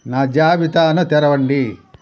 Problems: constant background noise